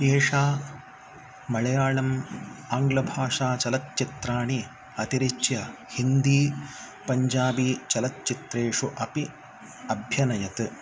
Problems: none marked